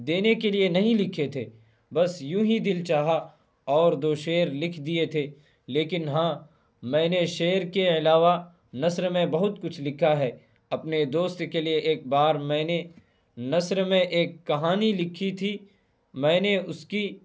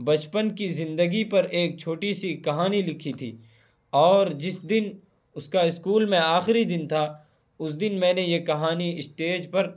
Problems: constant background noise